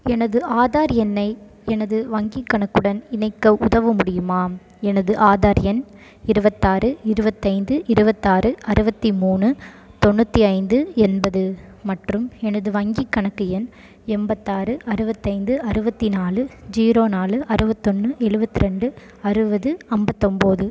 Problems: background sounds at intervals